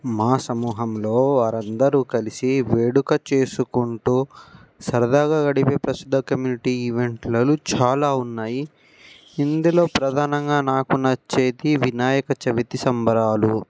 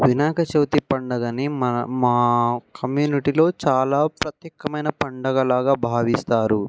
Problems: background sounds at intervals